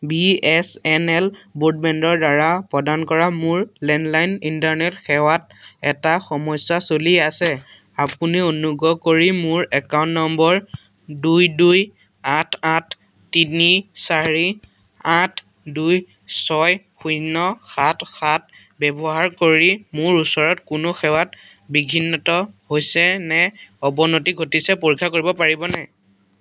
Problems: constant background noise